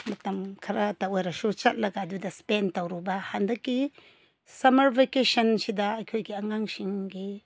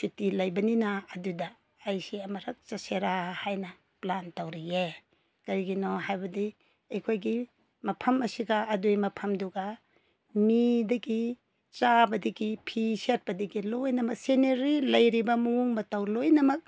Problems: none marked